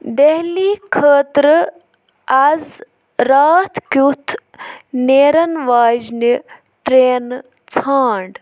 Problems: none marked